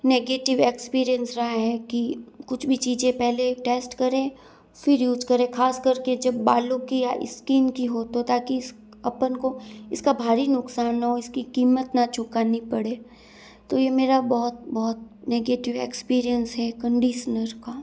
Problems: constant background noise